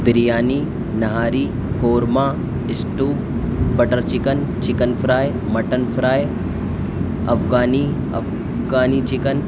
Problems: constant background noise